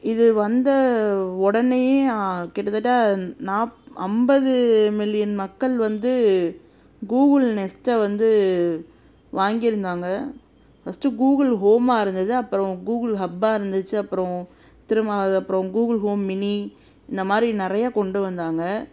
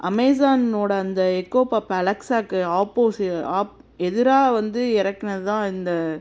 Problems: constant background noise